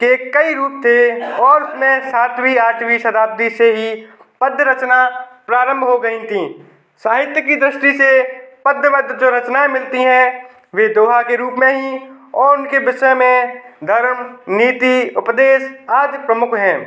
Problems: background sounds at intervals